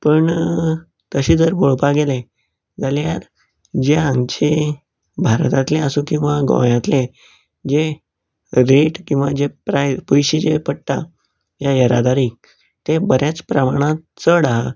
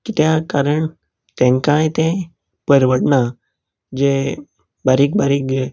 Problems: none marked